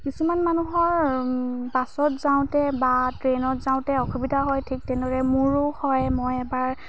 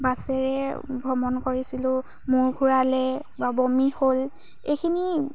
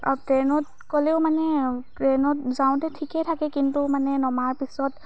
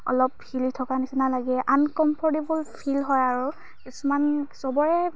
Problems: constant background noise